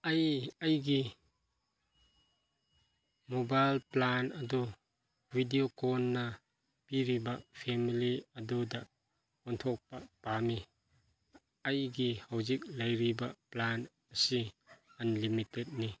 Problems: background sounds at intervals